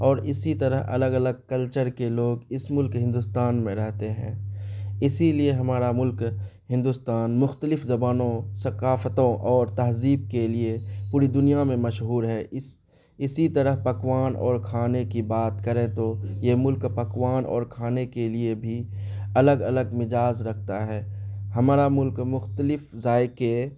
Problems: none marked